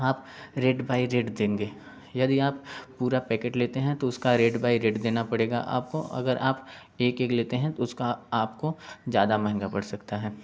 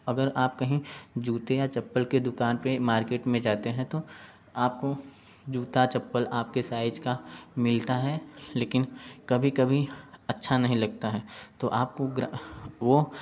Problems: background sounds at intervals